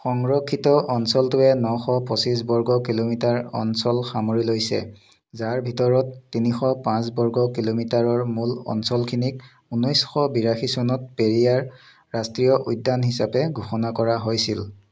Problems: background sounds at intervals